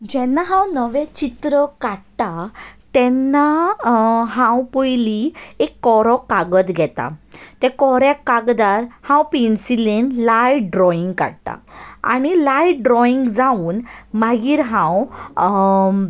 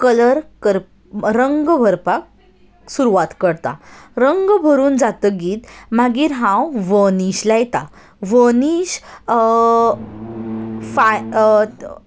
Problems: none marked